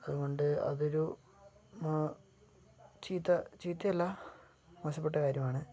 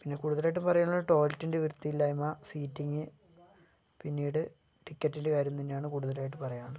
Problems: low volume